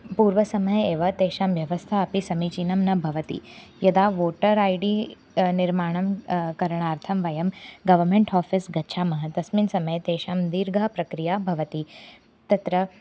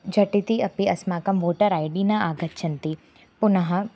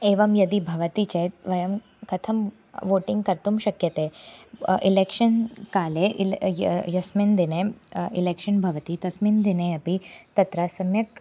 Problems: constant background noise